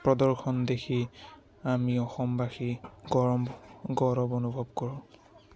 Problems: constant background noise, continuous background conversations